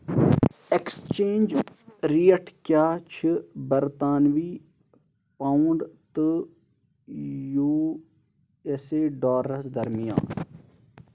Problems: background sounds at intervals